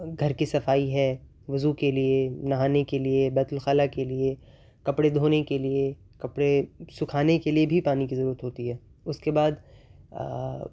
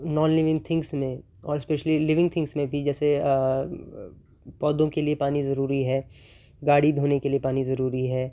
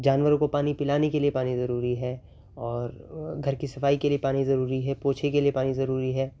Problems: constant background noise